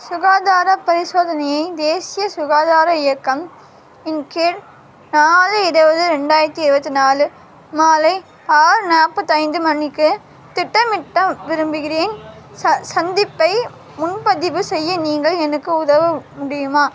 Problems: constant background noise, continuous background conversations